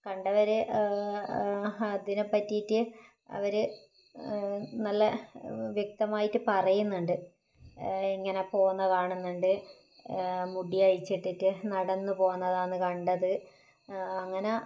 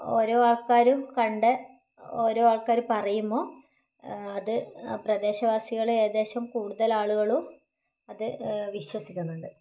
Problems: low volume